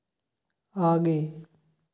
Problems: background sounds at intervals